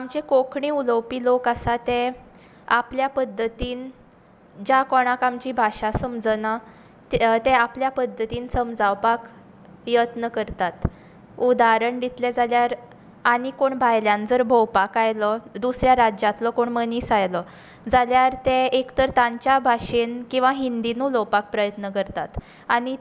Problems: background sounds at intervals